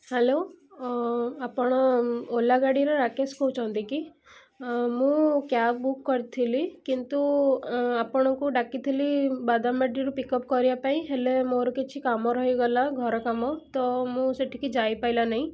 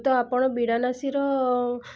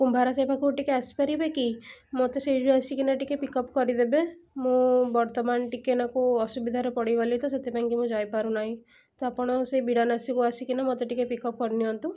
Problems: none marked